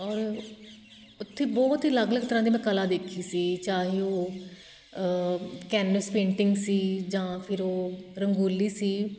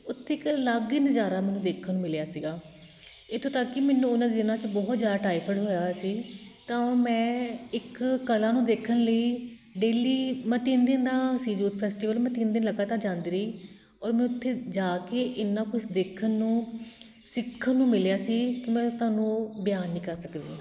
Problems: constant background noise